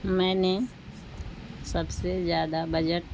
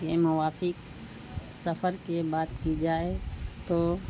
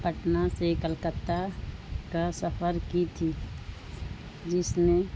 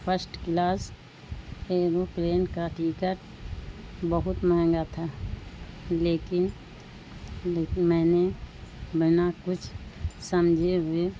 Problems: constant background noise